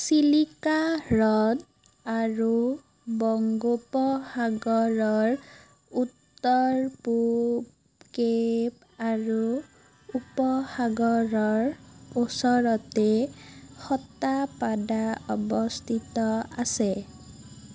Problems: constant background noise